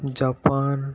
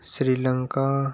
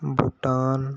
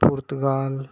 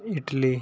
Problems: constant background noise